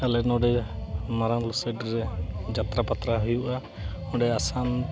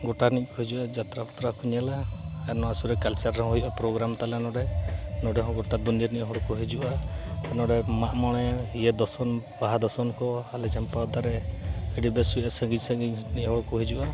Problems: constant background noise, continuous background conversations